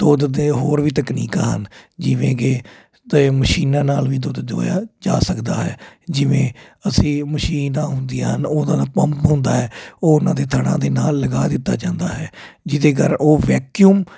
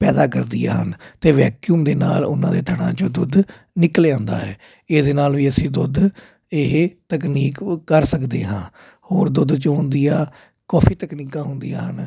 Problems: constant background noise